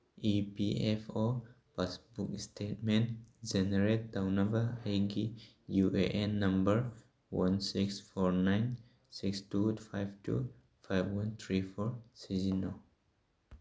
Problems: none marked